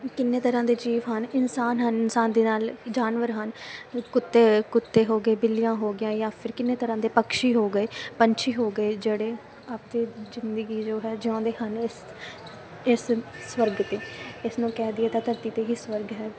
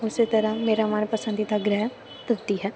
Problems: none marked